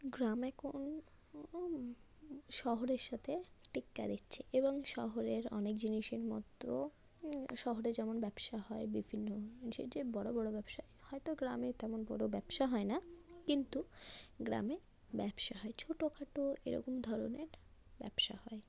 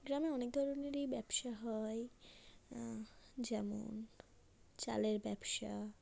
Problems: constant background noise, low volume